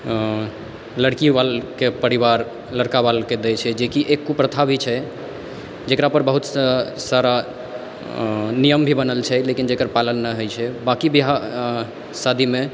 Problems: background sounds at intervals